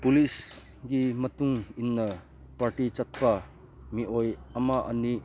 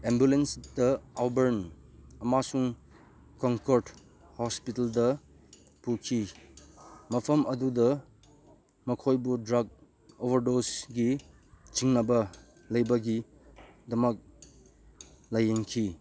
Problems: none marked